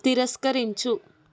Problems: constant background noise